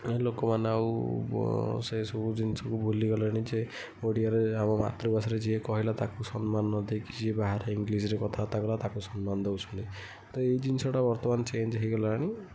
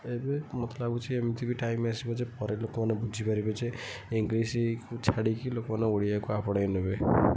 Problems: low volume